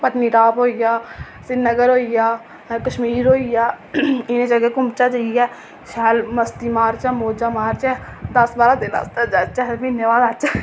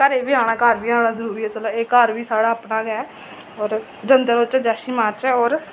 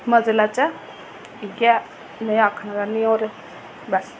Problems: none marked